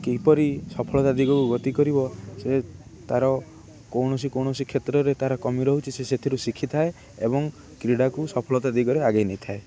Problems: constant background noise